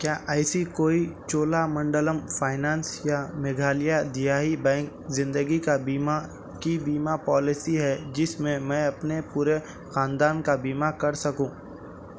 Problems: none marked